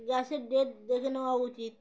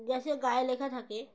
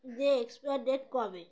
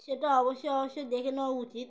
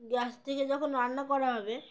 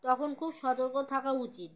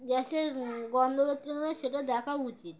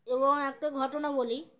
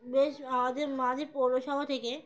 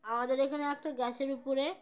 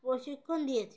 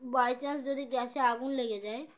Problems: background sounds at intervals